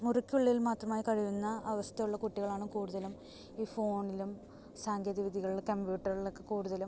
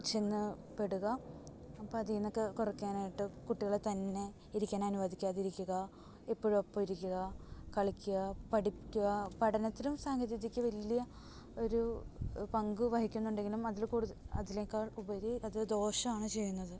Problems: background sounds at intervals, low volume